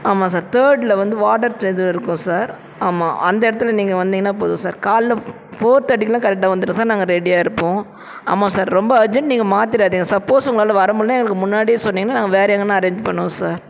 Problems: constant background noise, continuous background conversations